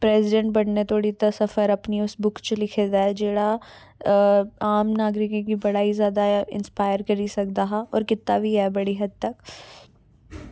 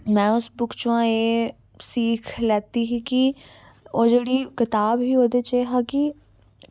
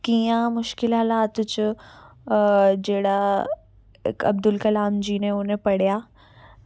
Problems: background sounds at intervals